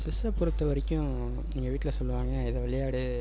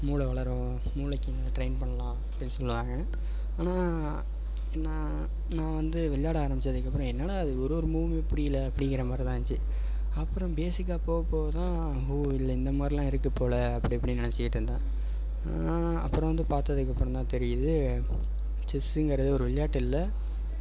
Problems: background sounds at intervals